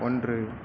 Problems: none marked